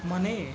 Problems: constant background noise